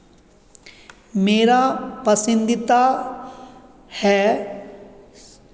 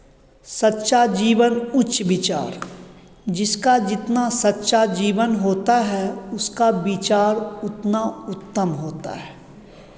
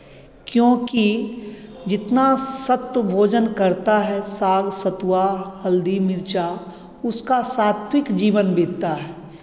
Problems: constant background noise